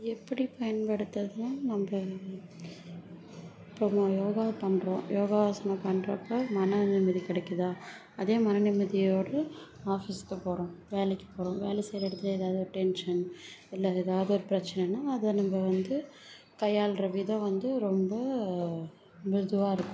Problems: low volume